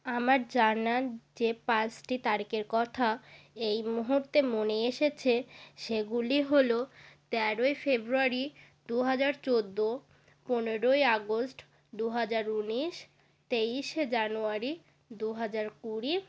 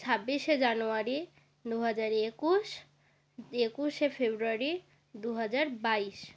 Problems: none marked